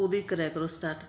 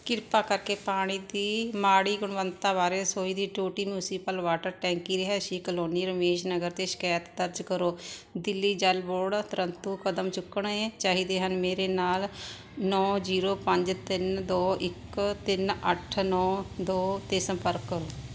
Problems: constant background noise